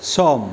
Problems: constant background noise